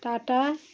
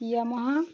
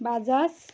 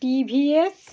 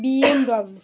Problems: none marked